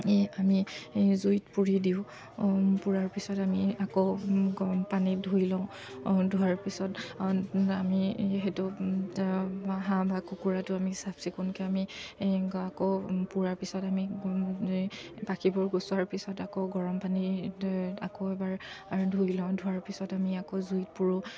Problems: none marked